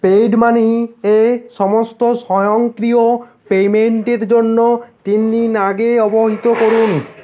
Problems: constant background noise